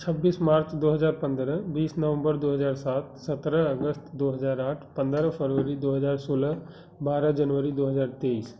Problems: none marked